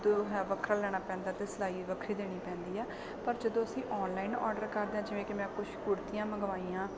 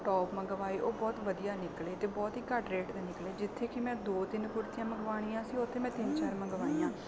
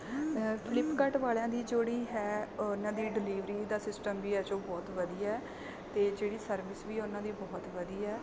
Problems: none marked